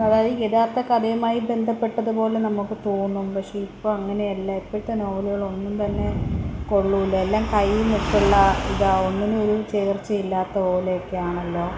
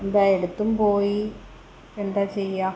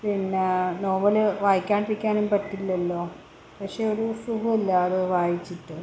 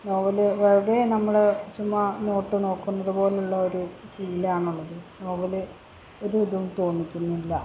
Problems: none marked